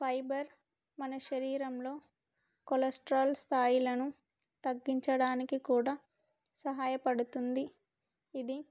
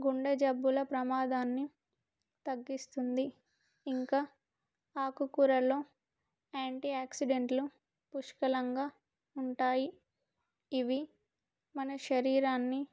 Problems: none marked